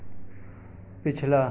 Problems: none marked